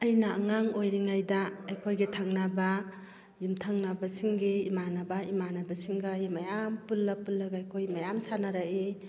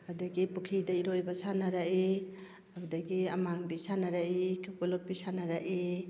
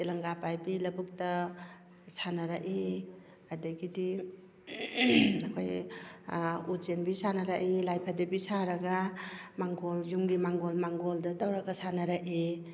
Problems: background sounds at intervals